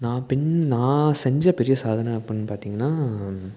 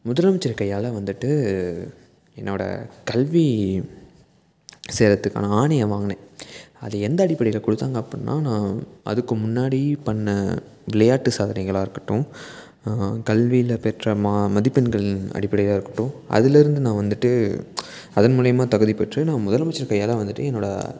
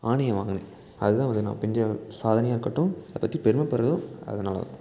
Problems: background sounds at intervals